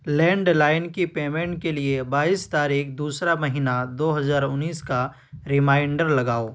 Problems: none marked